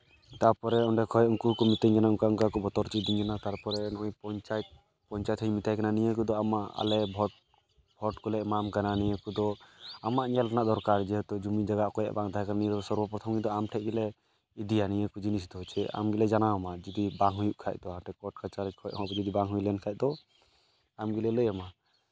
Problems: background sounds at intervals